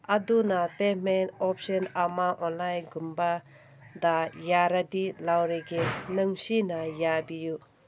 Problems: background sounds at intervals